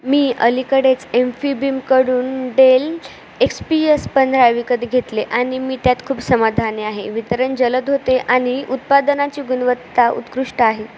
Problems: constant background noise